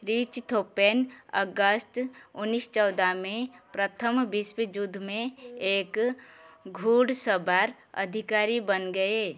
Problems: background sounds at intervals